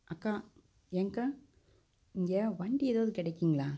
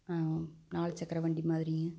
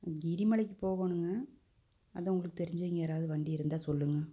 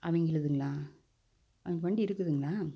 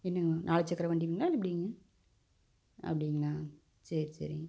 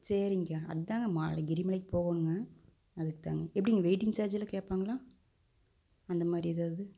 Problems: none marked